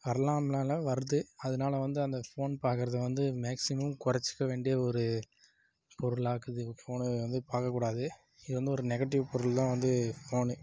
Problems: none marked